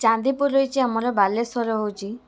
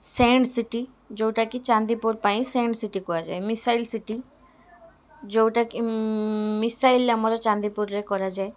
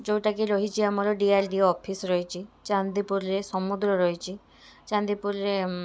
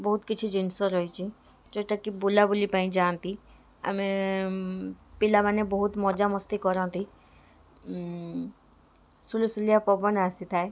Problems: constant background noise, continuous background conversations